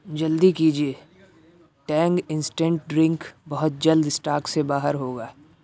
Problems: constant background noise